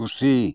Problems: none marked